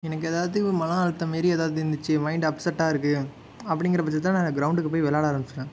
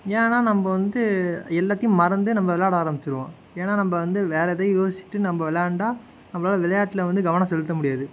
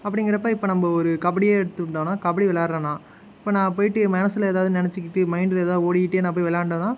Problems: none marked